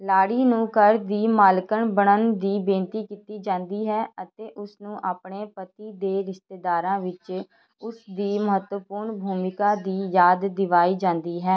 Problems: background conversations at intervals